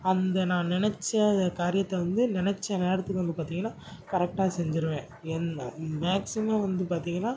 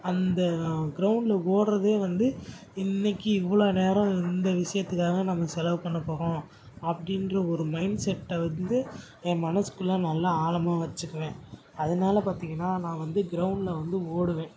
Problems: none marked